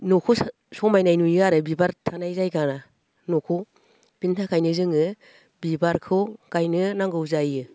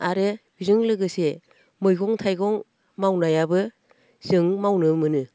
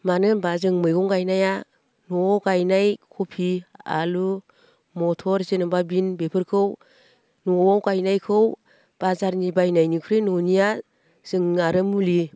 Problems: none marked